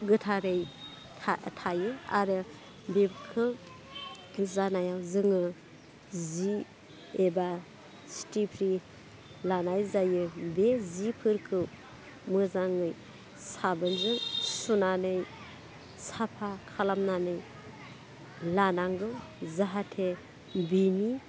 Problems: constant background noise